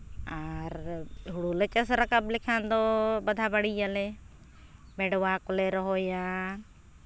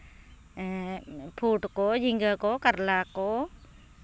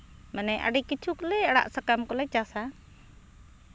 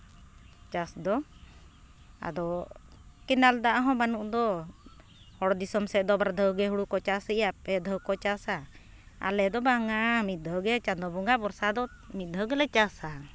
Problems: none marked